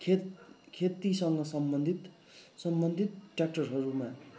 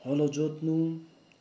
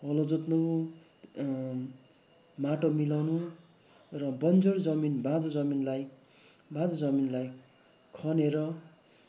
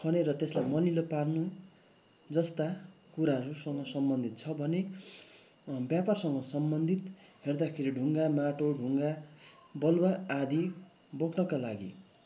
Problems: constant background noise